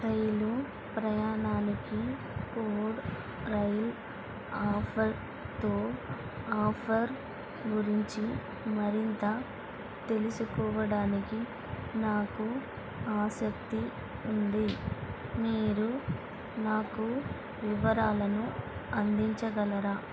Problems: constant background noise